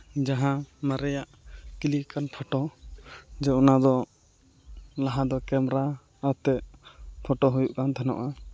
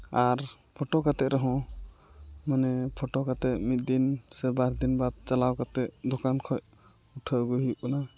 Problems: background sounds at intervals